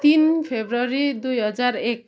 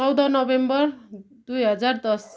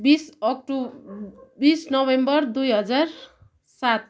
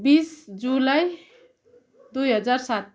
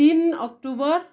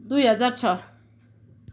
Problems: constant background noise